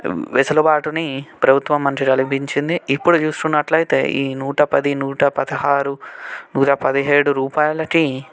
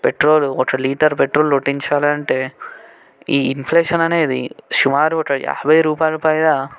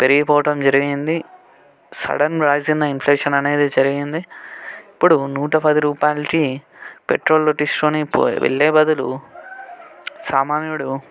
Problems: background conversations at intervals